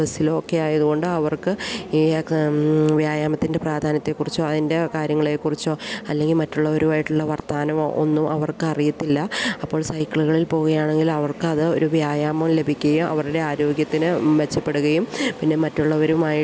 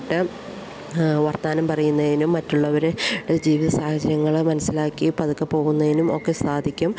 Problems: none marked